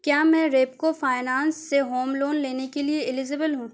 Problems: none marked